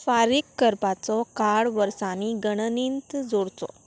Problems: constant background noise